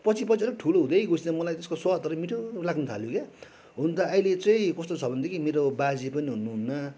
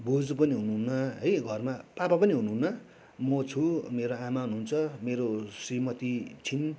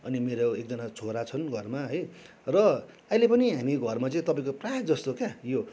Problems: none marked